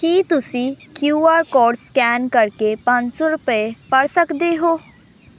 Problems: none marked